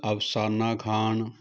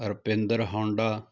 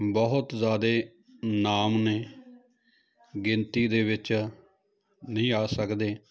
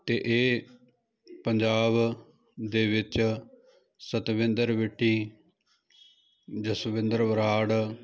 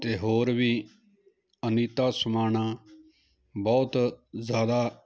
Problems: continuous background conversations